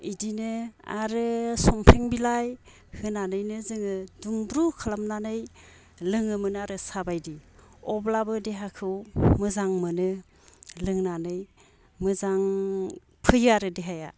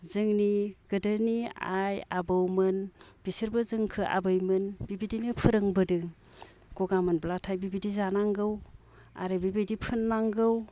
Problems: none marked